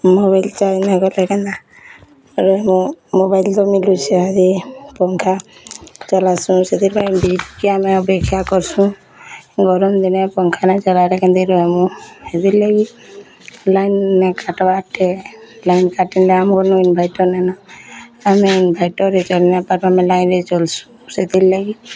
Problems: constant background noise, continuous background conversations